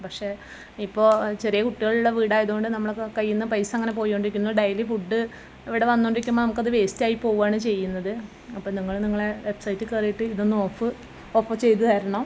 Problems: background conversations at intervals